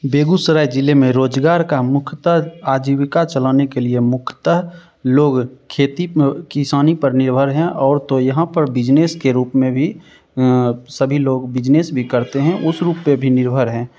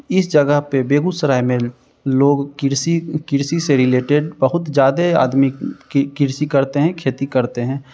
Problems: none marked